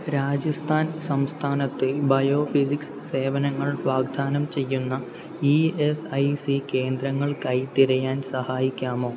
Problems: low volume